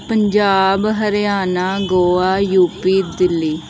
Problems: background sounds at intervals